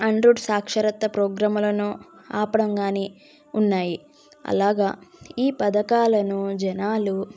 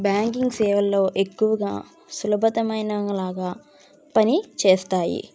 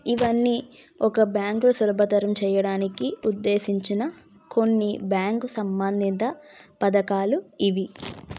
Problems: background sounds at intervals